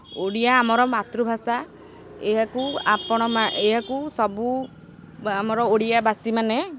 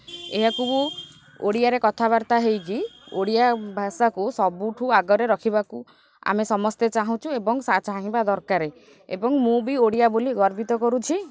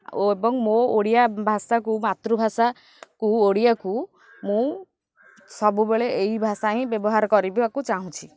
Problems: background sounds at intervals